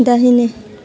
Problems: low volume